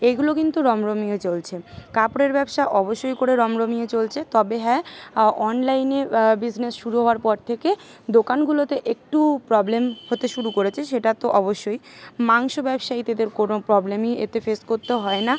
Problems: constant background noise, continuous background conversations